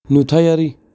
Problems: none marked